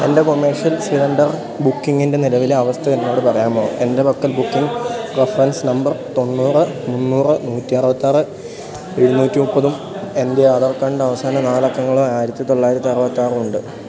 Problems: continuous background conversations